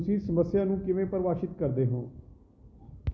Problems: none marked